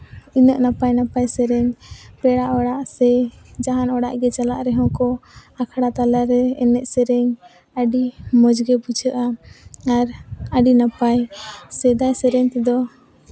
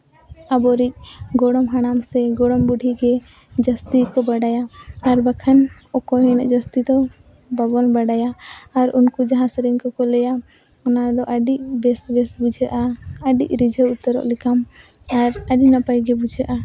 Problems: none marked